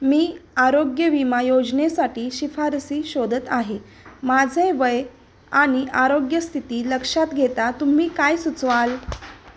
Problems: background sounds at intervals